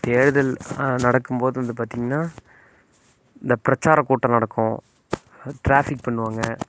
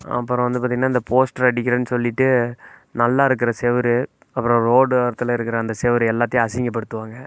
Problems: none marked